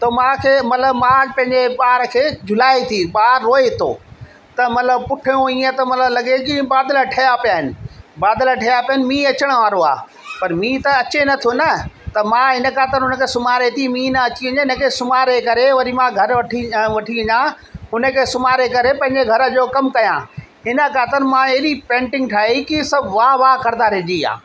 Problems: constant background noise, echo